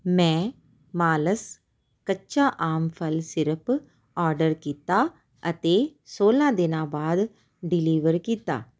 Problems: background sounds at intervals